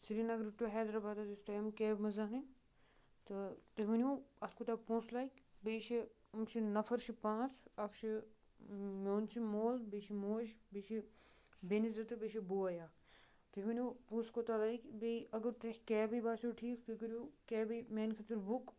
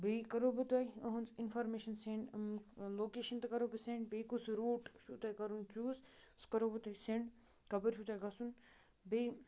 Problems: none marked